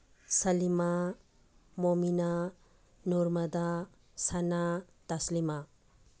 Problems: background sounds at intervals